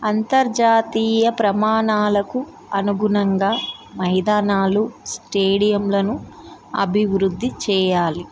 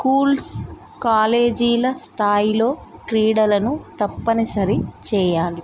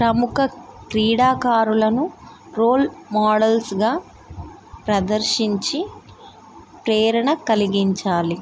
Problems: background sounds at intervals